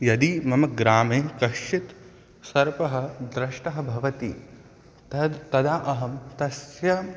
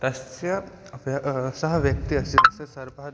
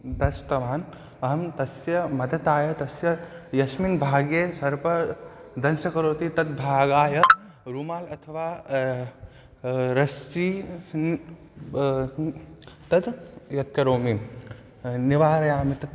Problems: background sounds at intervals